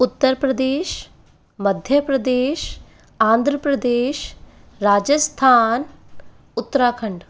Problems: constant background noise, background conversations at intervals